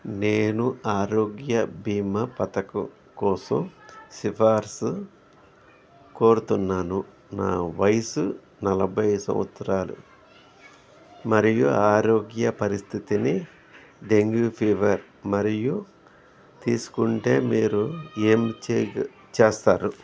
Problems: background conversations at intervals